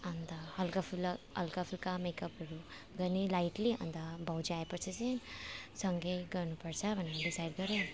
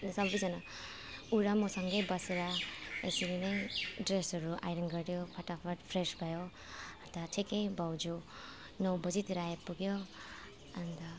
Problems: none marked